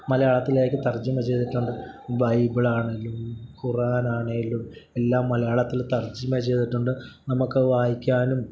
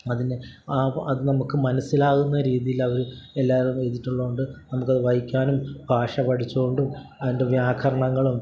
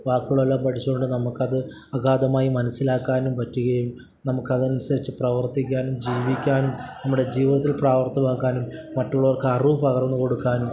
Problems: none marked